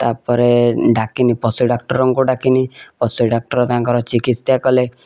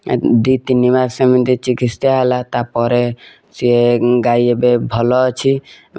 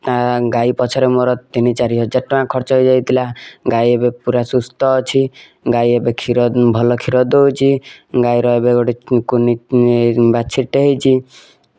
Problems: none marked